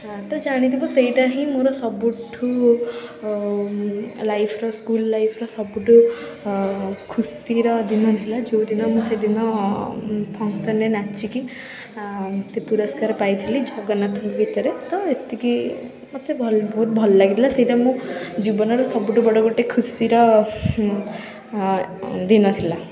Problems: background sounds at intervals, continuous background conversations